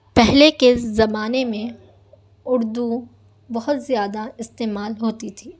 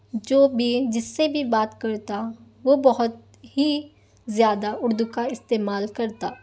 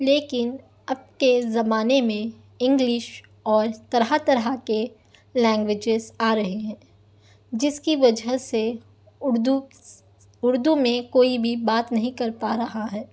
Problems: none marked